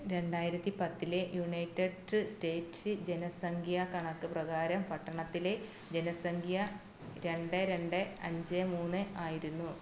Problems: low volume